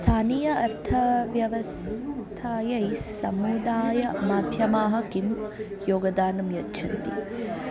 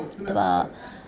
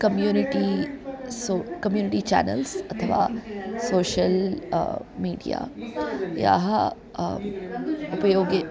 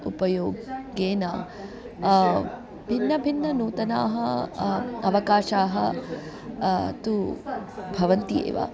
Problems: continuous background conversations